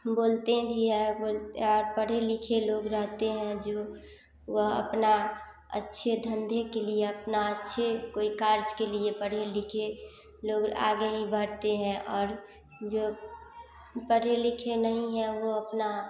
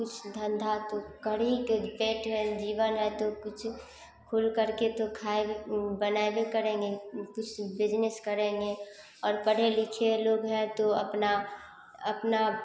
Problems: none marked